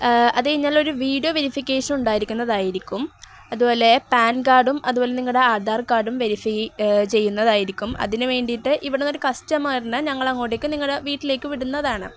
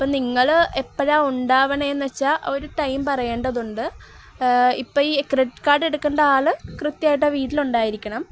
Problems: none marked